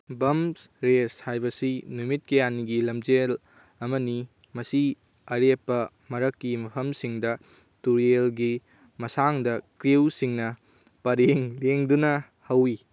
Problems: none marked